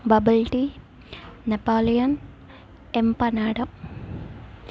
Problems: none marked